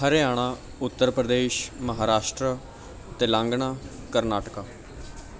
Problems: background sounds at intervals